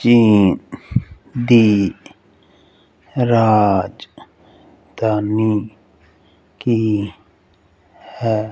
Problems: constant background noise